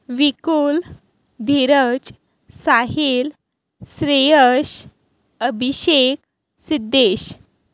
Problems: none marked